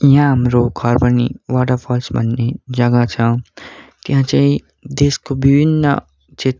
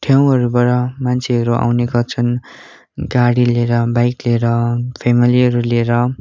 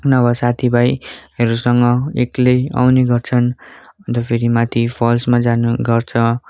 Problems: none marked